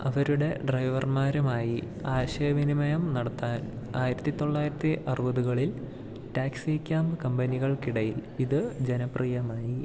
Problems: low volume